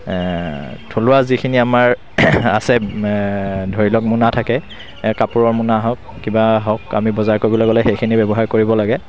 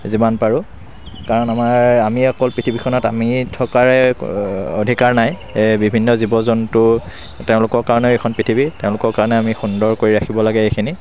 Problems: constant background noise